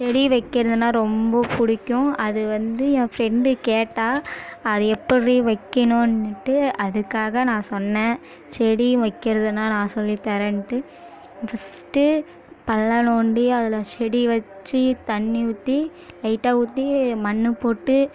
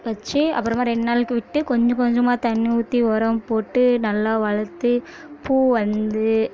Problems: continuous background conversations